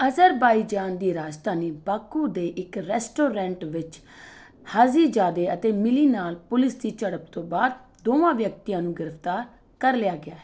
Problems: none marked